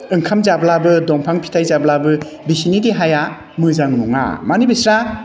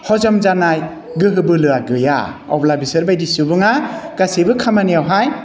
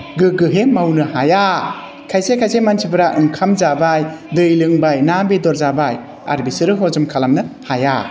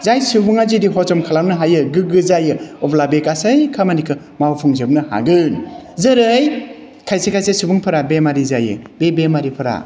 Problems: constant background noise